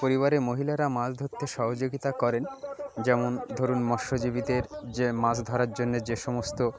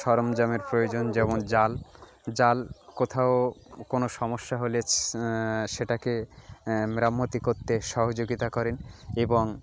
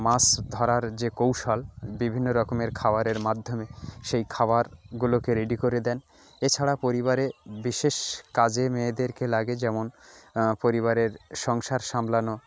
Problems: constant background noise, continuous background conversations